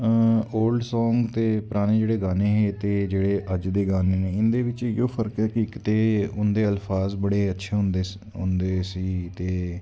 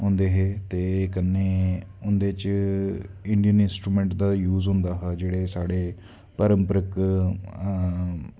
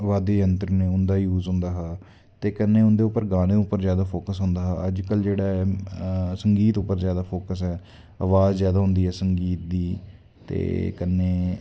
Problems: constant background noise